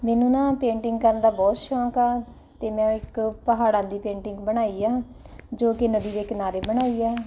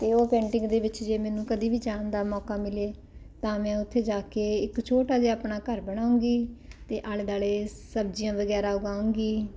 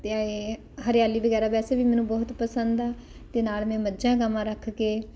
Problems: none marked